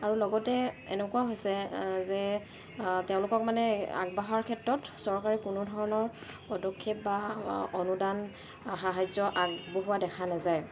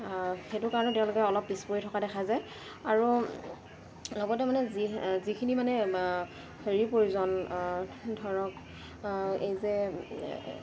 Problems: constant background noise